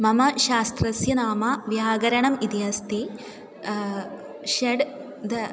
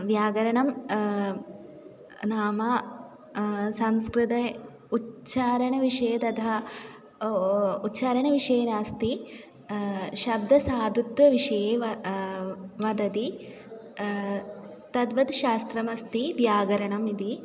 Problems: background conversations at intervals